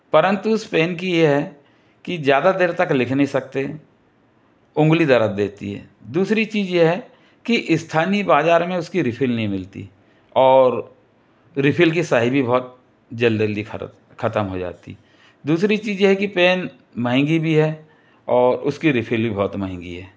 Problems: none marked